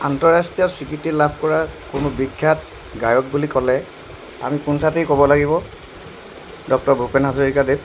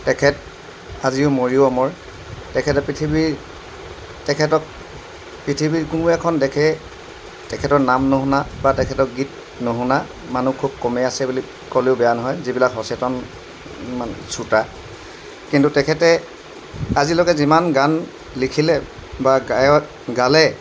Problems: constant background noise